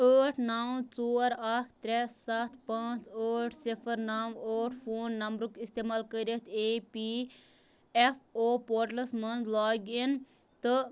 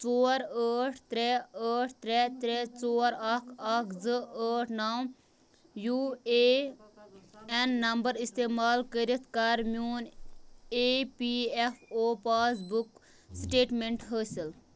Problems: background conversations at intervals